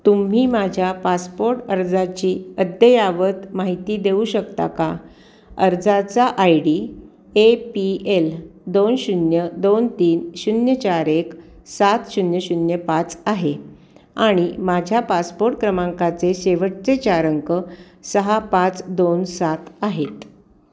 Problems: none marked